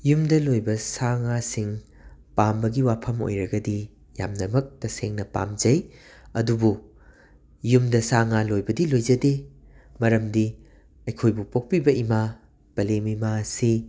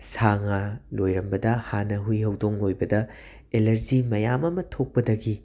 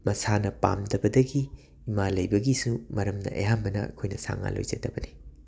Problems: none marked